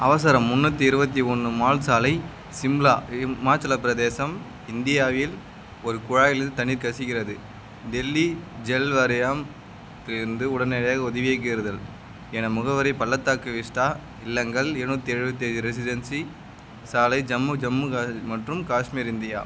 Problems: none marked